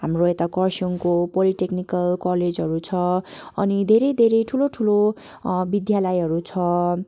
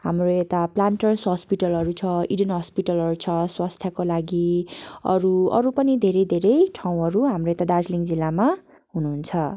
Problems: background sounds at intervals